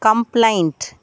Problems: none marked